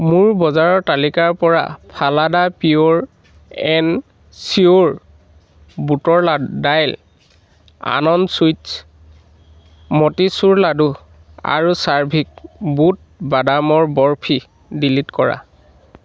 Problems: none marked